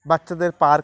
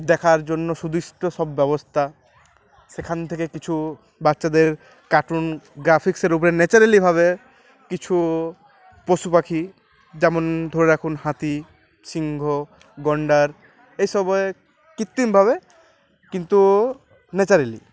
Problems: none marked